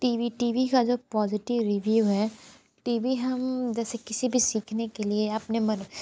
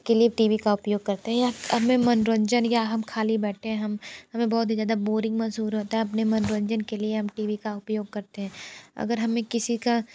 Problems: constant background noise